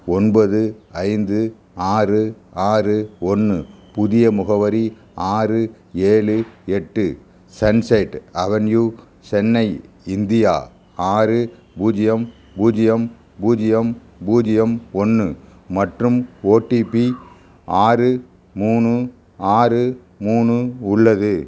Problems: constant background noise